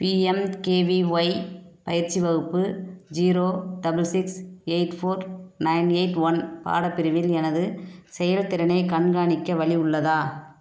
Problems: none marked